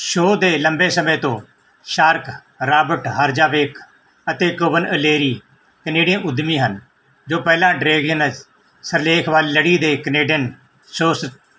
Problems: none marked